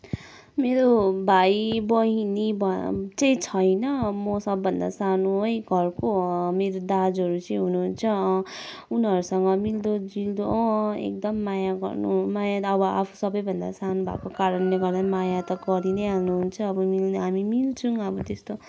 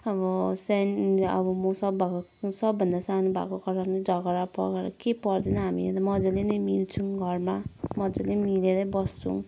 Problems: none marked